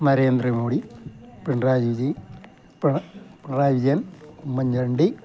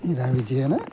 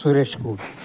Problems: background conversations at intervals